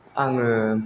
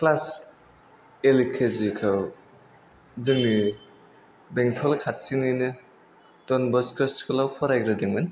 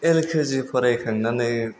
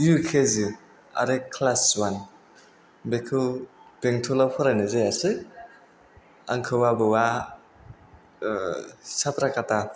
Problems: none marked